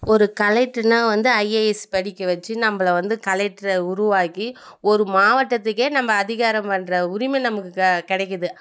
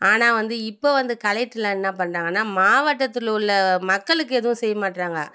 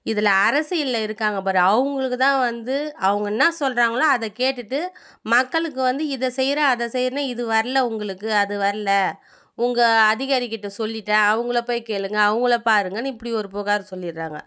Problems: none marked